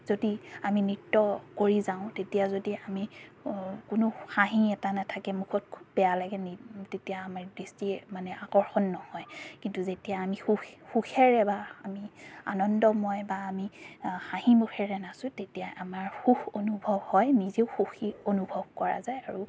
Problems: background sounds at intervals, background conversations at intervals